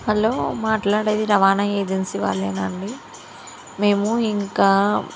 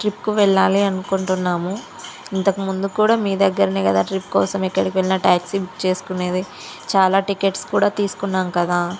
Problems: none marked